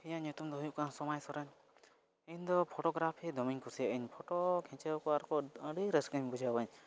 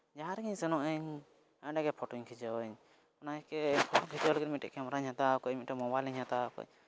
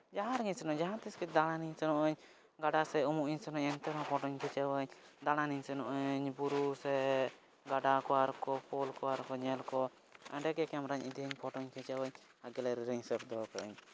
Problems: none marked